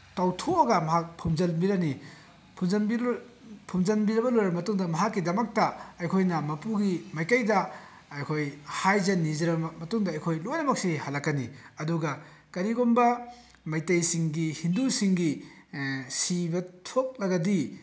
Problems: none marked